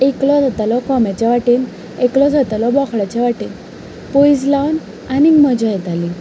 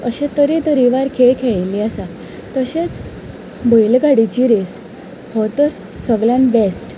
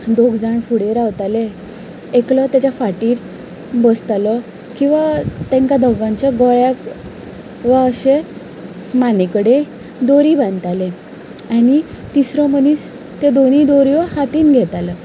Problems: background sounds at intervals